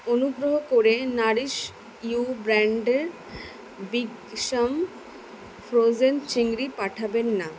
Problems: none marked